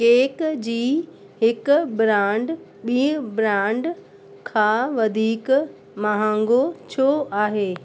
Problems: constant background noise